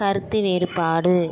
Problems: continuous background conversations